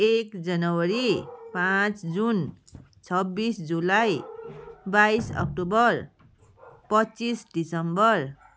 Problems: constant background noise